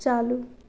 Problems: none marked